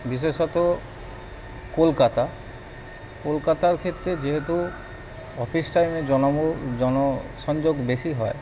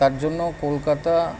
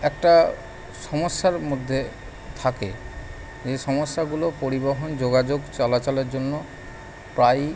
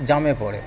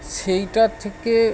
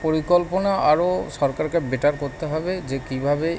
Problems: none marked